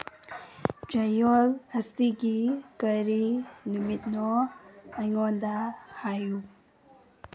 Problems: background sounds at intervals